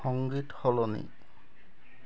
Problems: background sounds at intervals